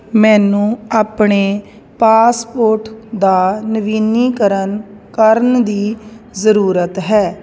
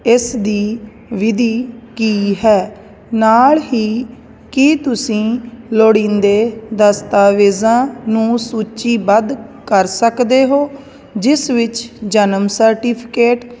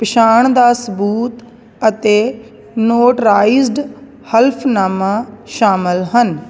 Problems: none marked